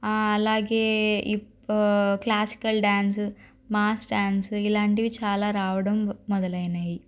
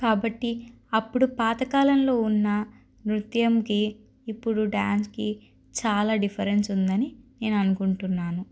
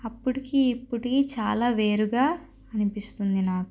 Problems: none marked